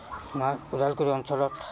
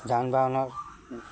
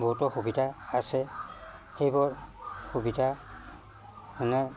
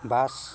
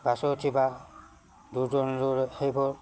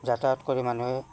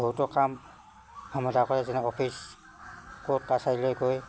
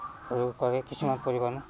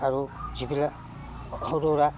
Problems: none marked